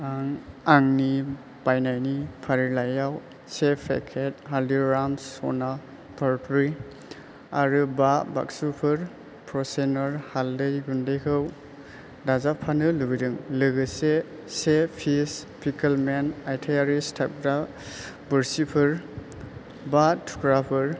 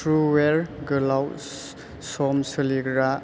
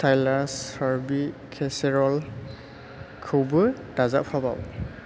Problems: constant background noise